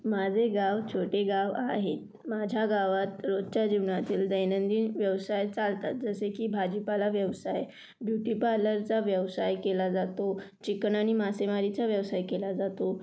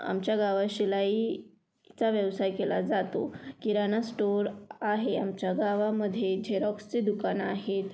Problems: none marked